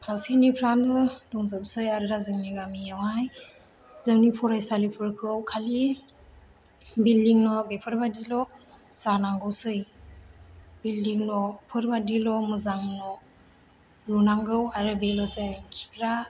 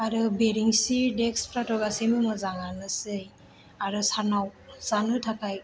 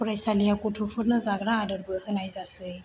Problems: low volume